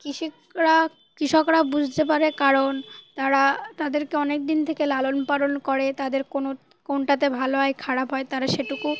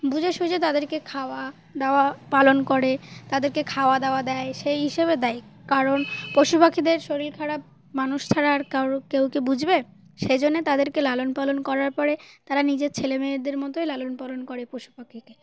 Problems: none marked